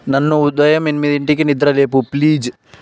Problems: none marked